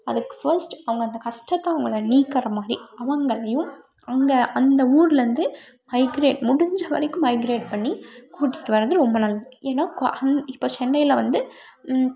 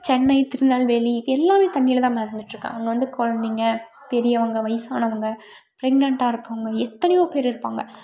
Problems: background sounds at intervals